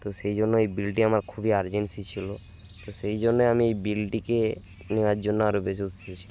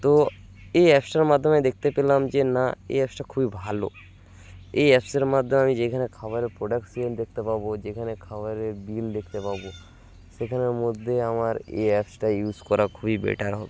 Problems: constant background noise